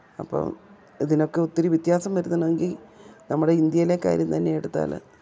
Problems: background sounds at intervals